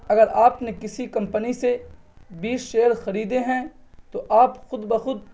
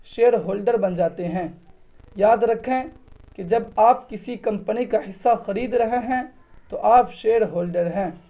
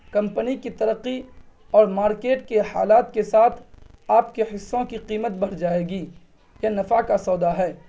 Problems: none marked